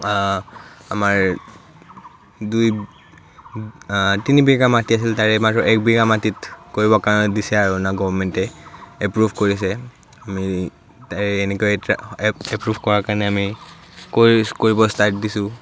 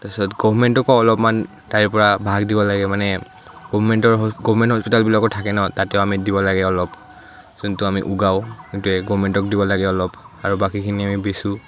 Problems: none marked